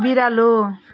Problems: background sounds at intervals